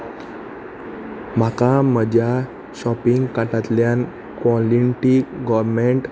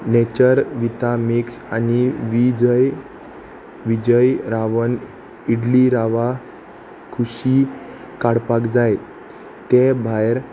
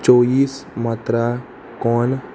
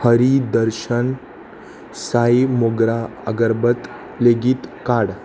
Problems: constant background noise